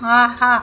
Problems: none marked